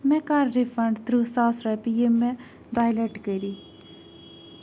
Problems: constant background noise